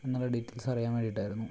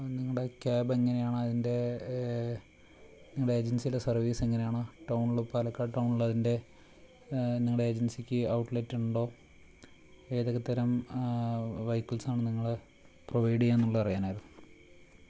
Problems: low volume